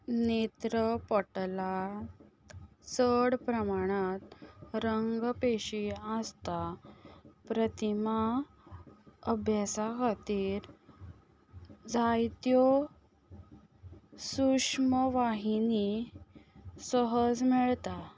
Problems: constant background noise